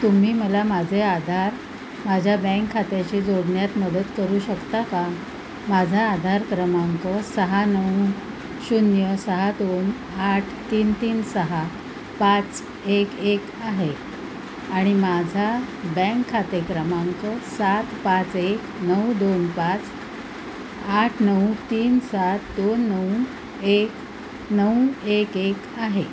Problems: background sounds at intervals